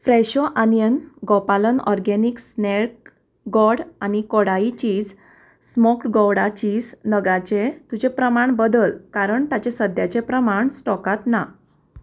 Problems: none marked